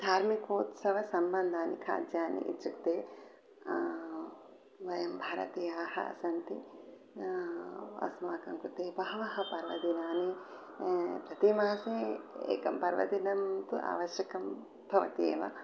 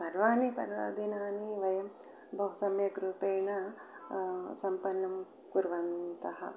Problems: none marked